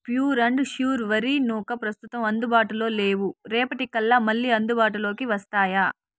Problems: none marked